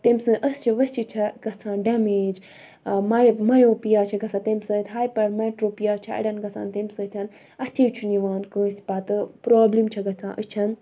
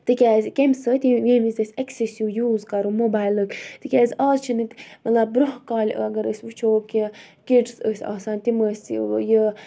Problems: none marked